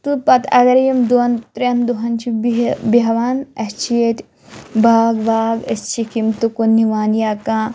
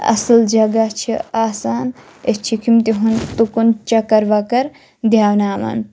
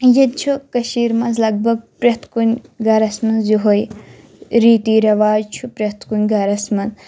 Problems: none marked